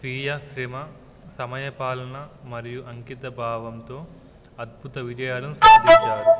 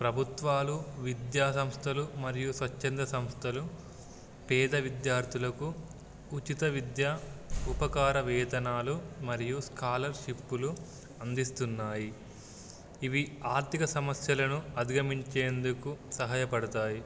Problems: background sounds at intervals